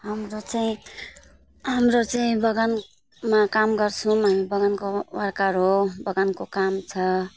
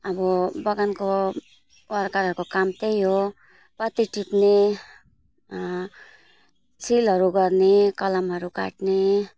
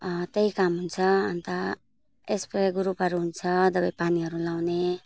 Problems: background sounds at intervals